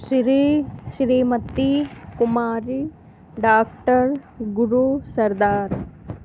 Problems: constant background noise